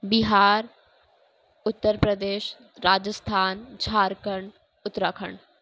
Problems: constant background noise